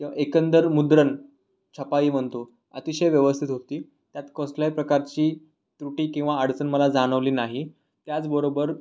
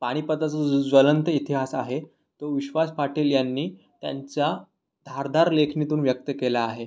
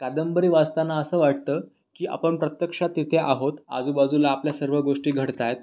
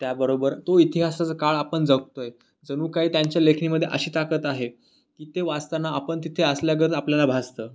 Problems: none marked